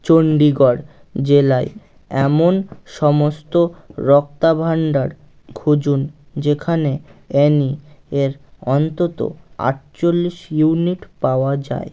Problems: none marked